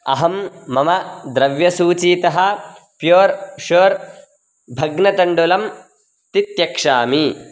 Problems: constant background noise